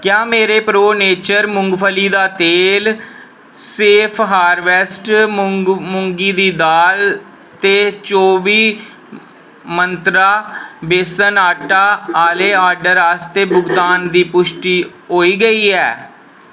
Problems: none marked